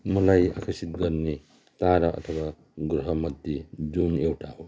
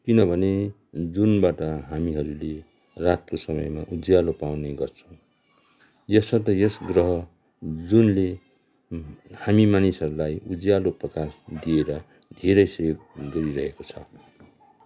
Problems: background sounds at intervals